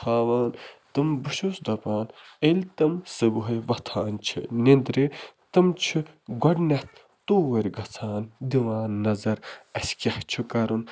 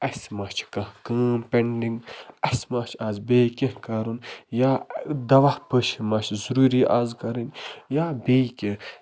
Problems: background sounds at intervals, background conversations at intervals